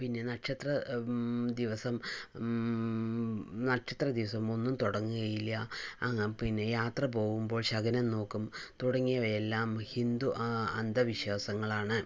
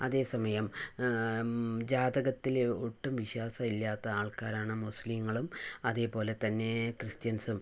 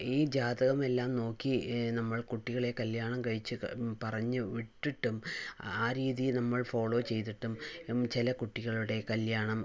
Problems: low volume